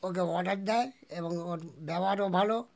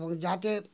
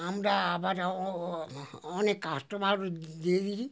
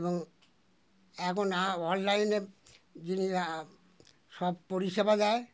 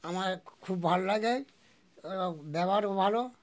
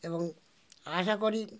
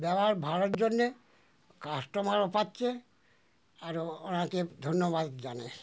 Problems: none marked